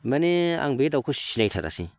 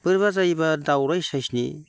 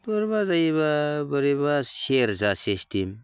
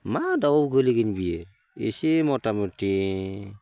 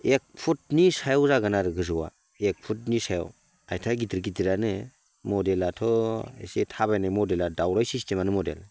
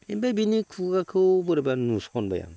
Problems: constant background noise